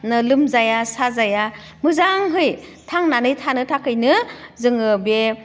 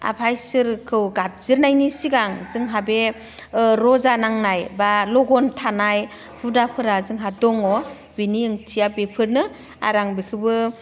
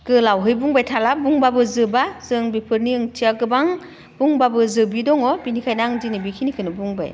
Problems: none marked